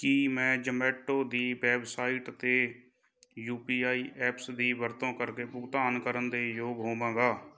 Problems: none marked